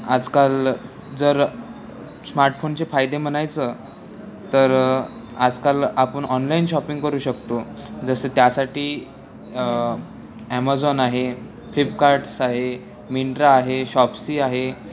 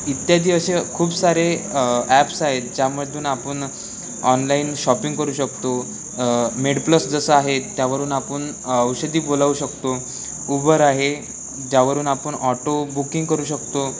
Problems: constant background noise